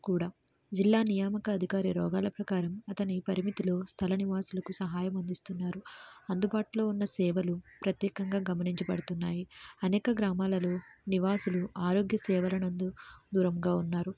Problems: none marked